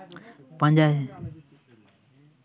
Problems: continuous background conversations